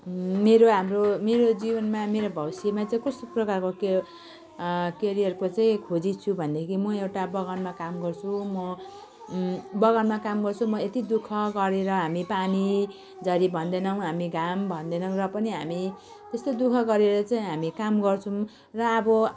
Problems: continuous background conversations